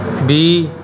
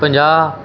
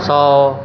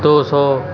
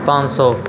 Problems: none marked